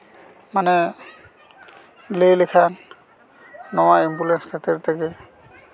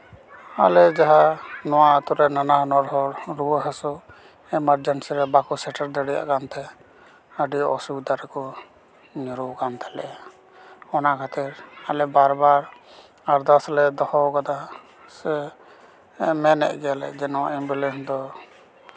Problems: background conversations at intervals